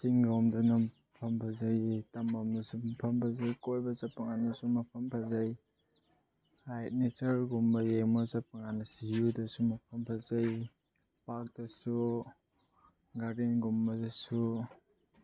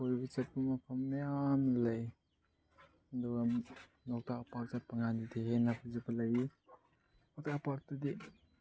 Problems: low volume